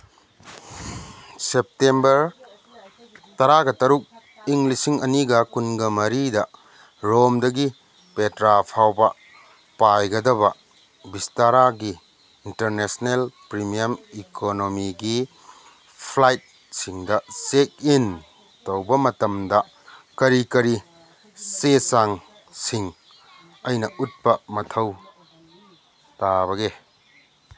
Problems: none marked